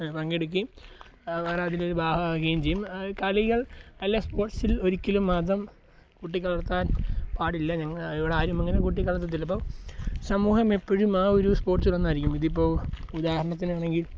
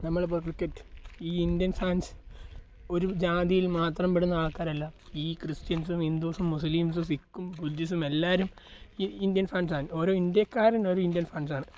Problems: background sounds at intervals